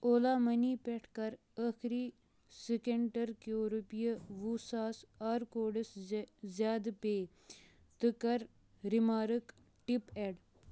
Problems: none marked